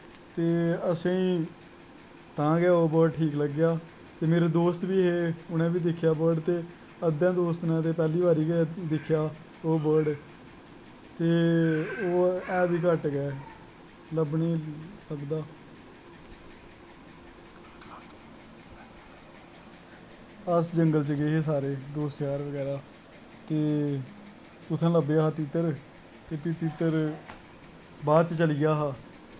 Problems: constant background noise